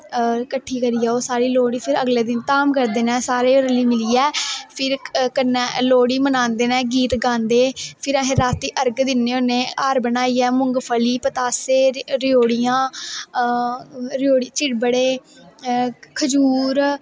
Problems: none marked